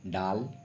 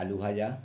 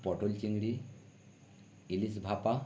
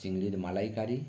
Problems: none marked